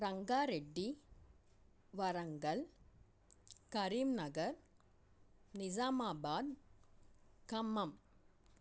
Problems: none marked